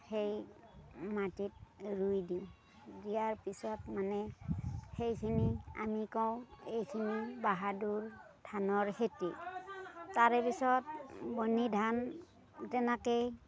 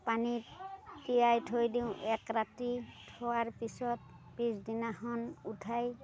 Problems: none marked